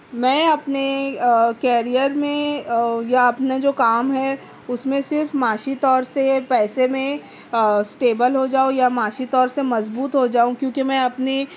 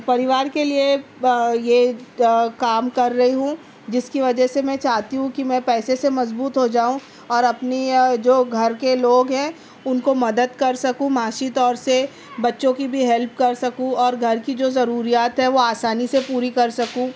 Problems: none marked